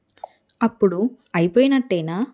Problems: none marked